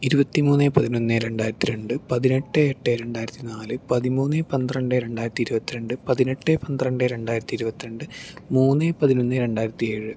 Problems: none marked